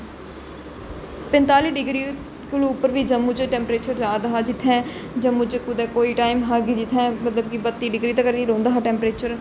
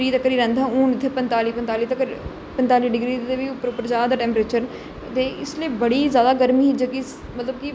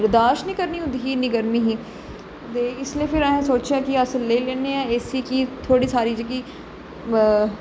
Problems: constant background noise, echo